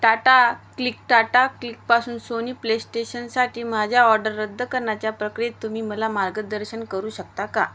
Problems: constant background noise